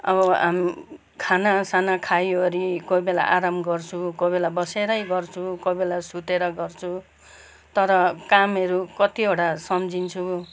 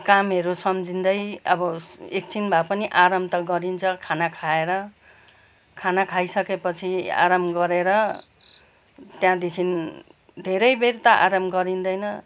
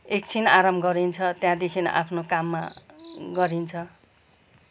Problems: background sounds at intervals